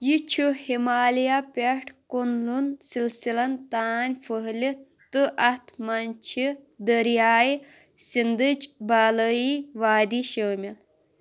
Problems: none marked